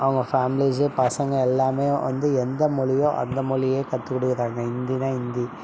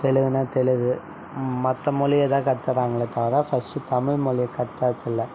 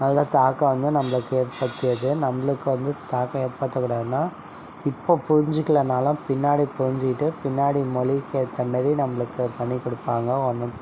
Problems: background sounds at intervals